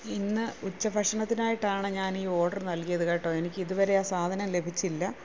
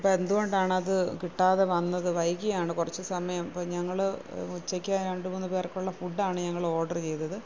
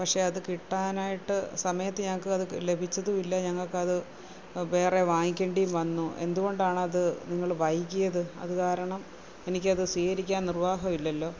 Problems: constant background noise, low volume